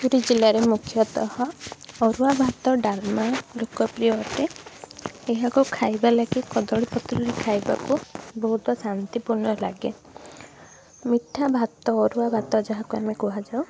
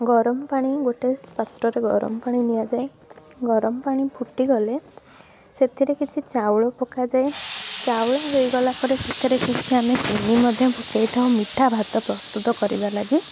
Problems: none marked